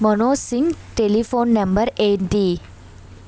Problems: background sounds at intervals